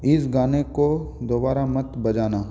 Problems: none marked